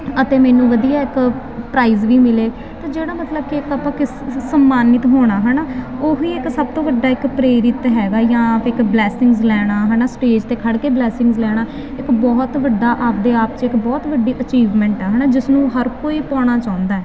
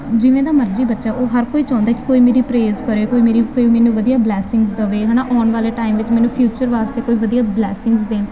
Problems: constant background noise